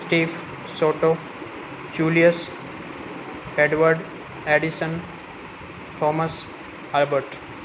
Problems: constant background noise